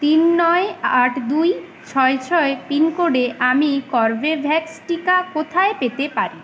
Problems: constant background noise